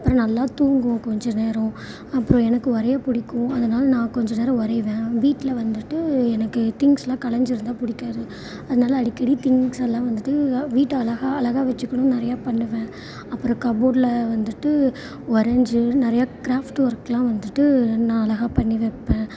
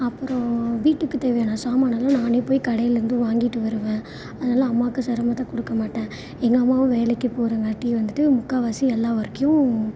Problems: constant background noise